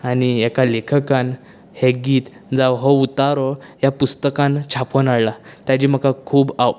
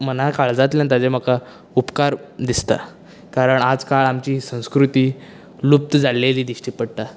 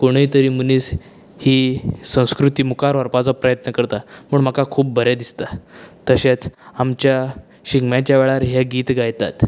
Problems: none marked